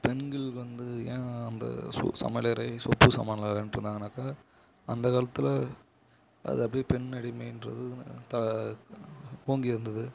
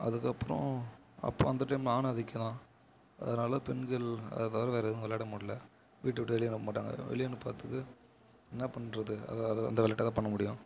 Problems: low volume